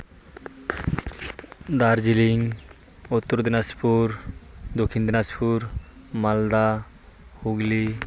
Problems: constant background noise